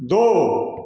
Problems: background sounds at intervals, echo